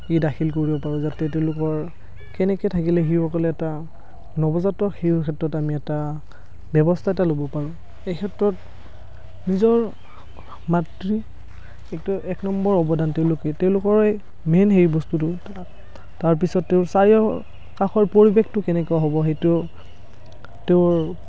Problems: none marked